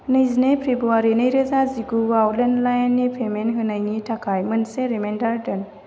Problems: none marked